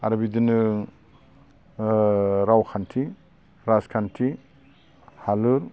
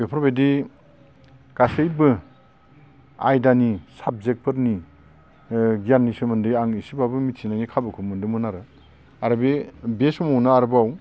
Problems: constant background noise